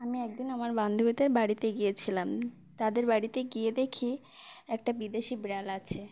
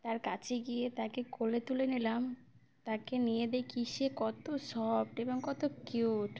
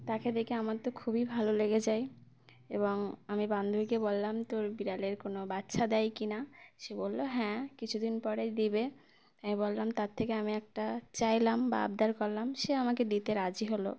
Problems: background sounds at intervals